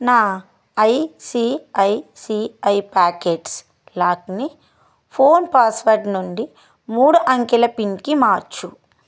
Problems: none marked